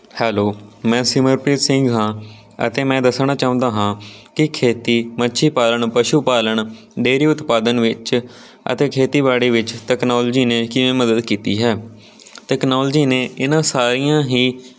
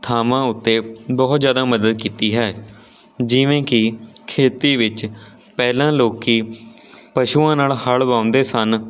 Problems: none marked